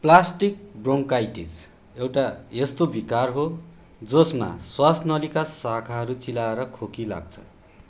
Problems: none marked